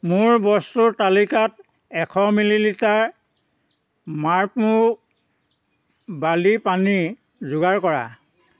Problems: background sounds at intervals